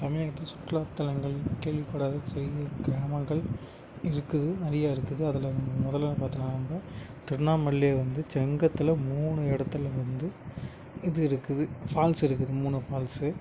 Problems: background sounds at intervals, background conversations at intervals